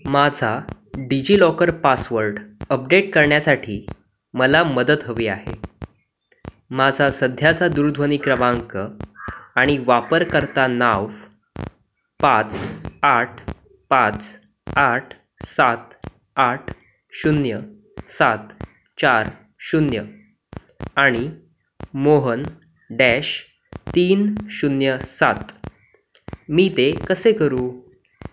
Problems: none marked